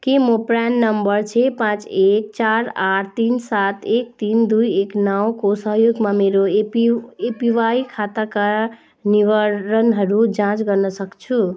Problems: constant background noise